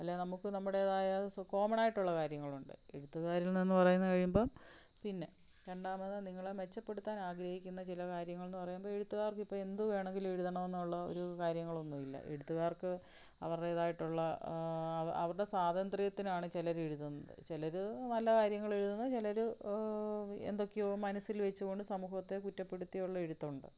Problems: low volume